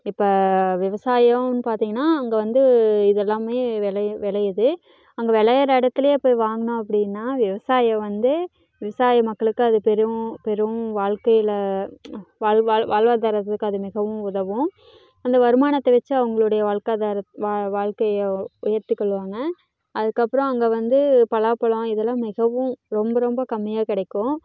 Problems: background conversations at intervals